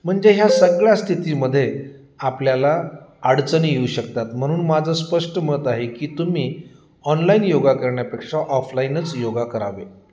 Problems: none marked